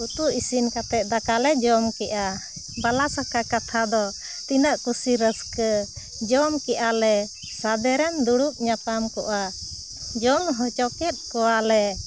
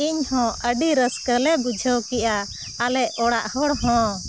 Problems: constant background noise